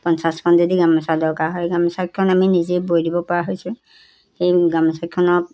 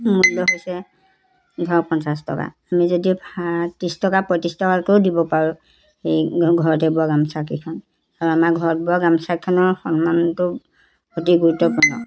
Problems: background conversations at intervals